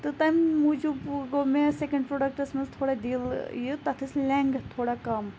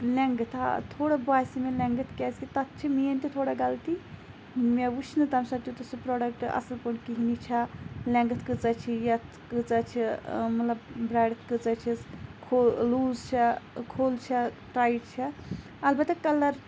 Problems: constant background noise